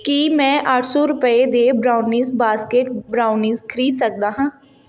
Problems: none marked